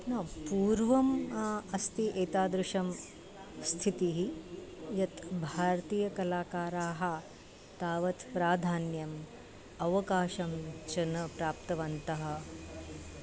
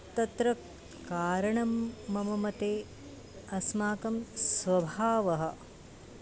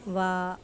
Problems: constant background noise